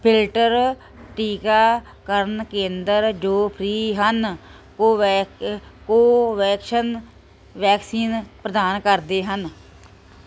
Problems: none marked